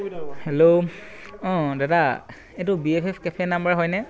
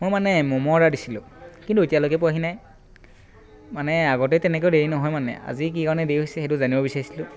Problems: constant background noise